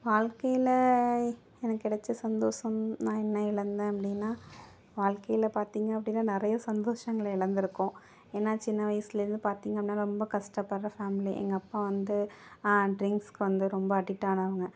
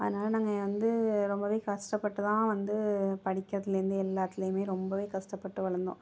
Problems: none marked